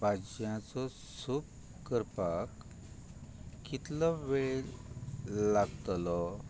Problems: none marked